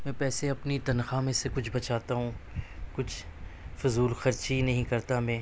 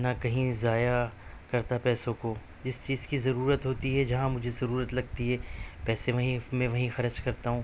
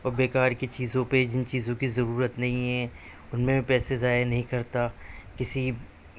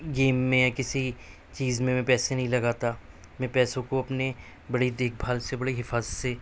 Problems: none marked